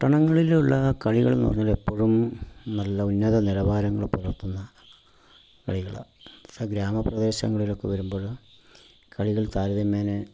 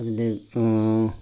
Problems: constant background noise, low volume